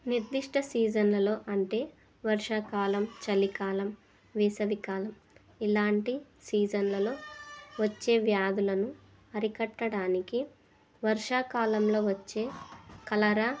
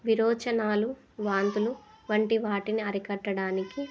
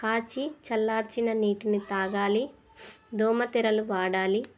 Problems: continuous background conversations